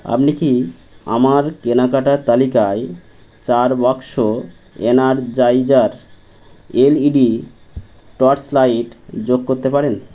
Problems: constant background noise